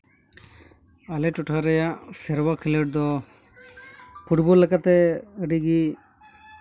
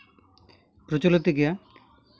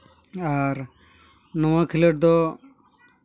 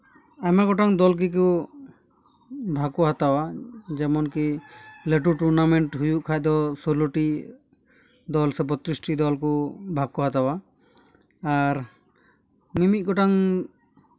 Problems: none marked